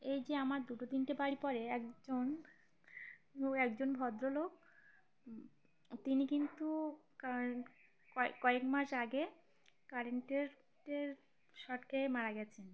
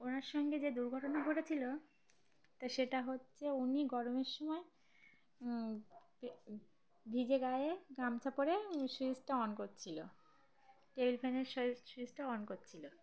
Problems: constant background noise, background conversations at intervals